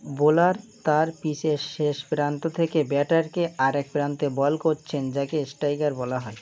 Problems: none marked